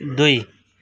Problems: background sounds at intervals